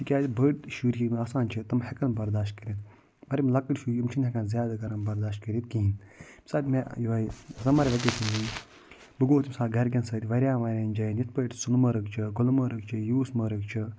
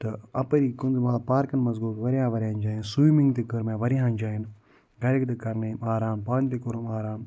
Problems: none marked